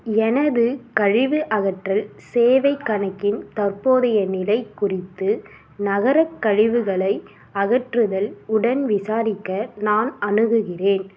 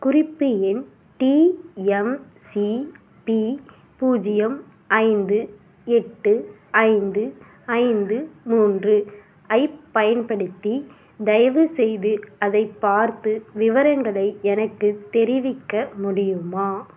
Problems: background sounds at intervals